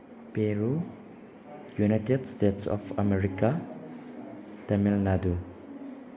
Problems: background sounds at intervals